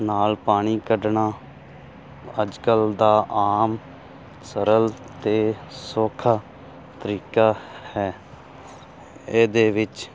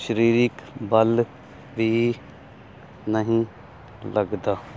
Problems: constant background noise